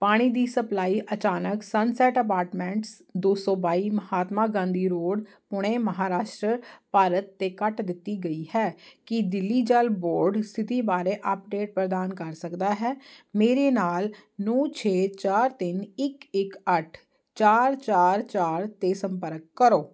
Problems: constant background noise